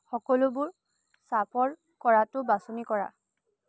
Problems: low volume